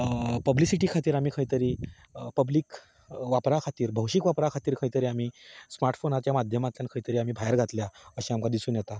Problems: constant background noise